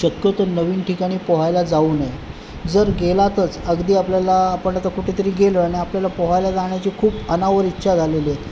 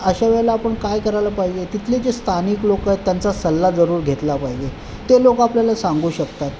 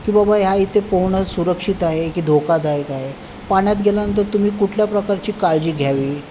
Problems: constant background noise